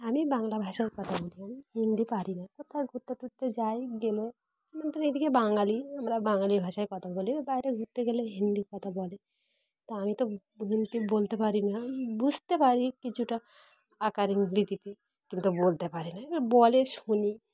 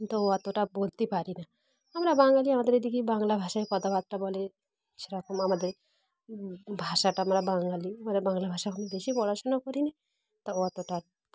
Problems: none marked